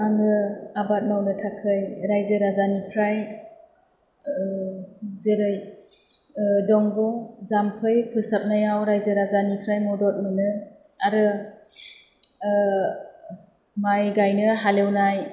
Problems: none marked